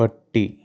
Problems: low volume